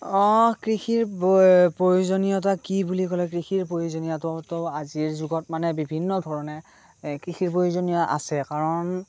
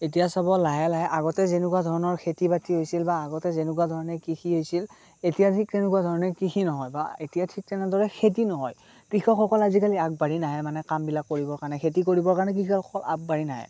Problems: constant background noise